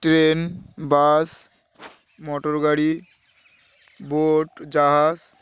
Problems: constant background noise